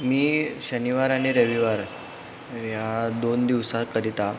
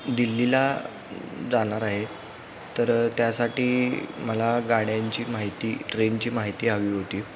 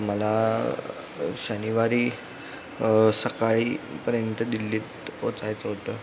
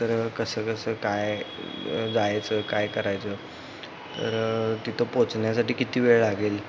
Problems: constant background noise, continuous background conversations